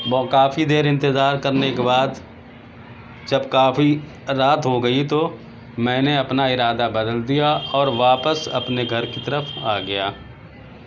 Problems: constant background noise